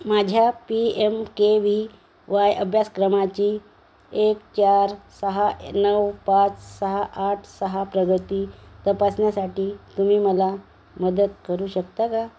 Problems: background sounds at intervals